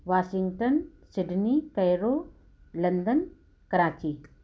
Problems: none marked